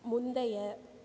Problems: low volume